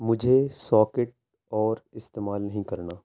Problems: none marked